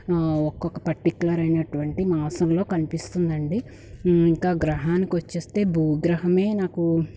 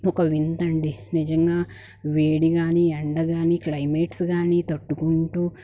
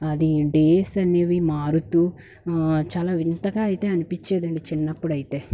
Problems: background sounds at intervals